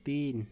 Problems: none marked